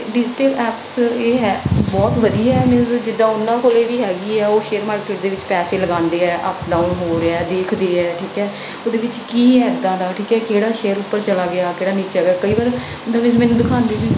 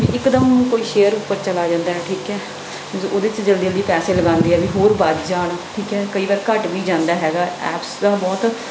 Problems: background sounds at intervals